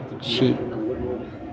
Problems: background conversations at intervals, low volume